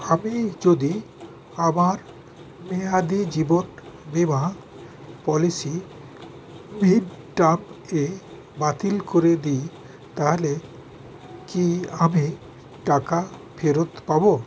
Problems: constant background noise